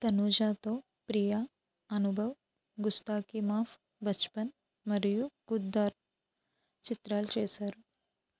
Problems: low volume